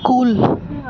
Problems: constant background noise